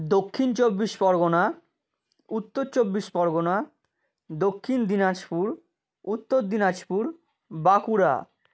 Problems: none marked